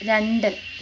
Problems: constant background noise